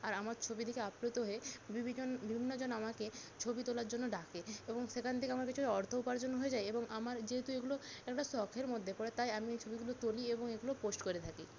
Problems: constant background noise